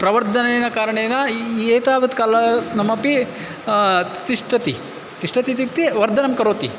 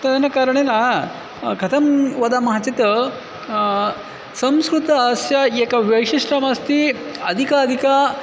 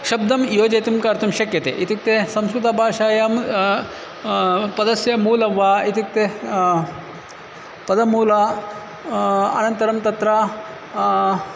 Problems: constant background noise, background conversations at intervals